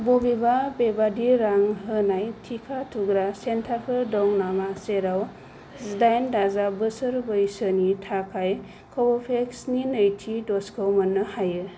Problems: low volume